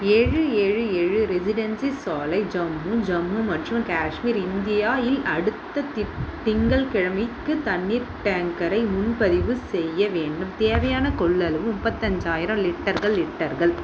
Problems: constant background noise